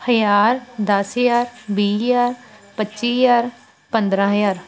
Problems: continuous background conversations